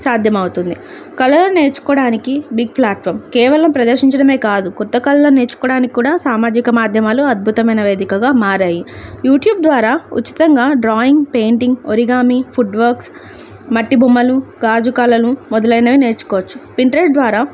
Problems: none marked